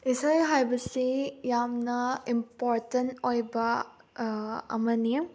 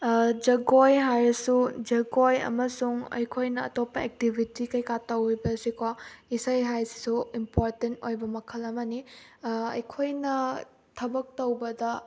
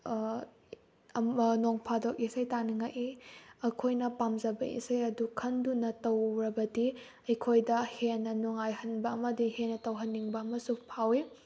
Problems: background sounds at intervals